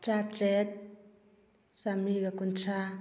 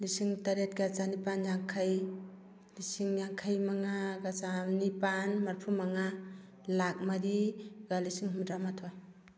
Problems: none marked